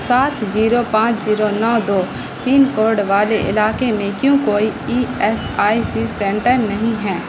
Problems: constant background noise